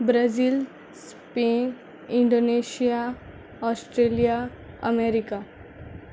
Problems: none marked